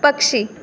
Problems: constant background noise